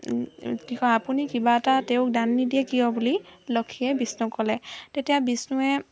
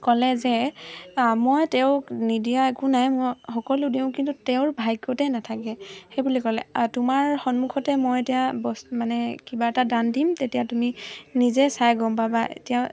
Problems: constant background noise